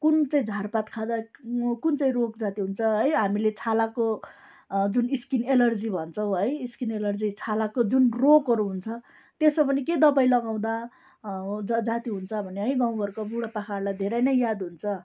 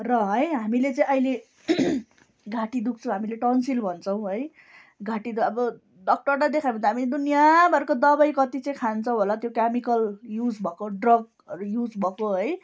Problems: background sounds at intervals